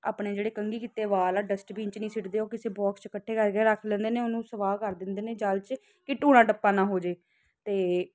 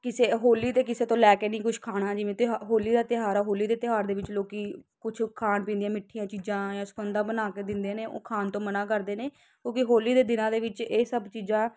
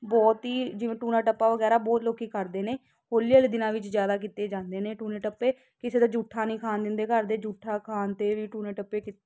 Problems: constant background noise